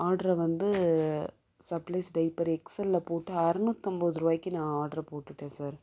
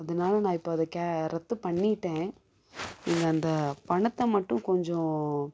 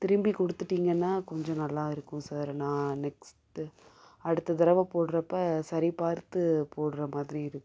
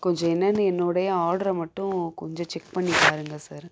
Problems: background sounds at intervals